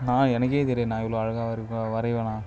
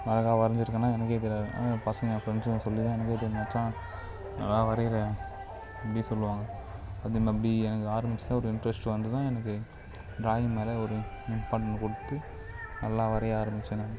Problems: constant background noise